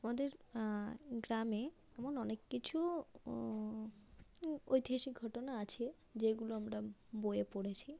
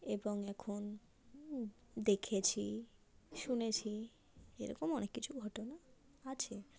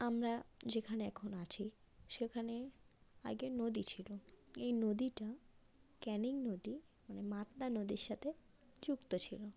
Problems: constant background noise